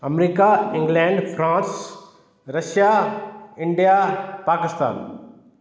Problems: echo